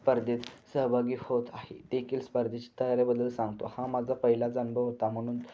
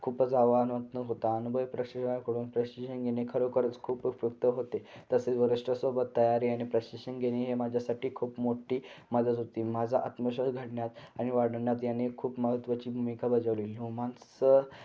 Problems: constant background noise